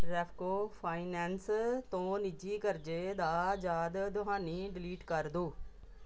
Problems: background sounds at intervals